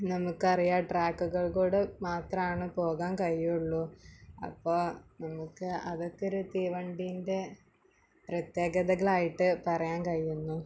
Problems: background sounds at intervals